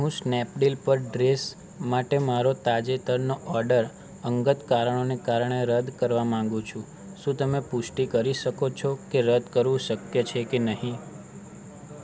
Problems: none marked